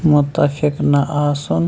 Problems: constant background noise